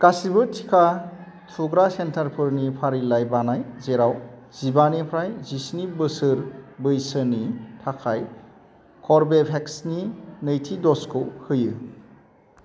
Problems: constant background noise